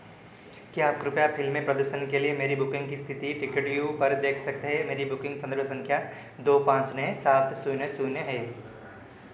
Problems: none marked